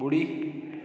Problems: constant background noise, echo